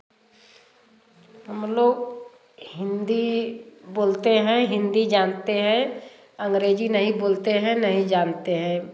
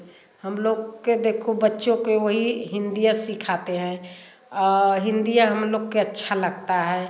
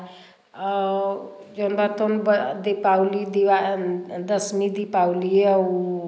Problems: constant background noise, background conversations at intervals